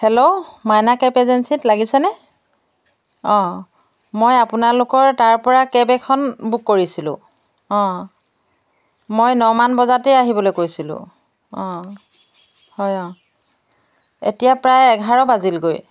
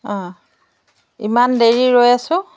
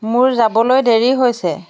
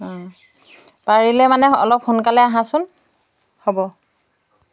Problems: background sounds at intervals